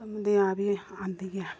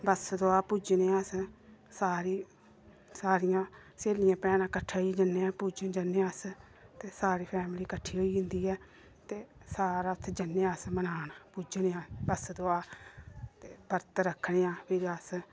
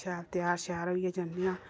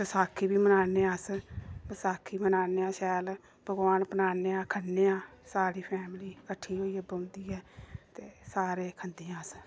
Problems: none marked